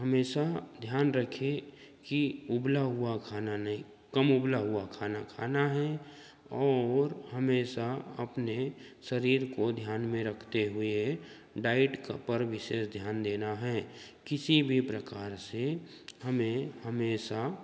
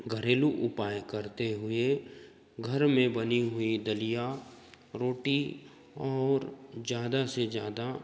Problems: constant background noise, continuous background conversations